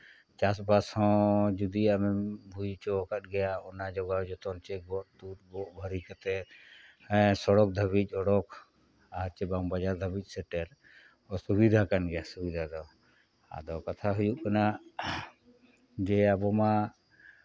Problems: none marked